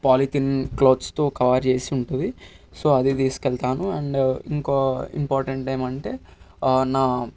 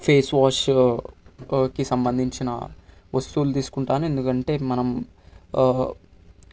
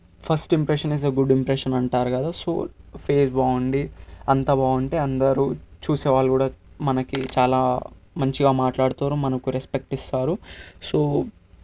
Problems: constant background noise